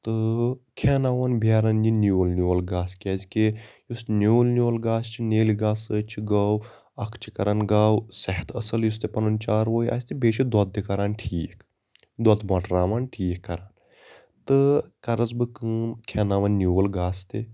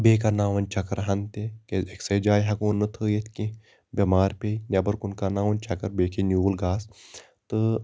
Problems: constant background noise